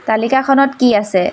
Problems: constant background noise